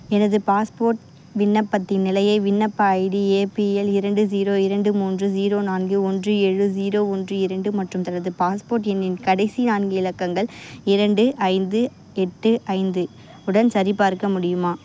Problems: constant background noise